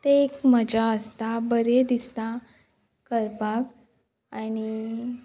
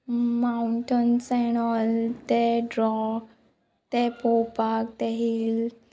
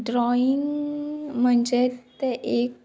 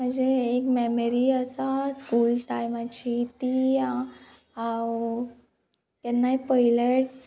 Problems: background sounds at intervals